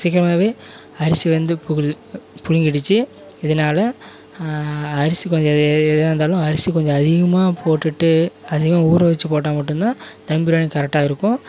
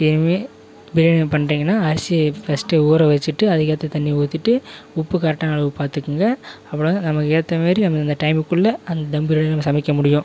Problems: none marked